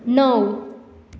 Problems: constant background noise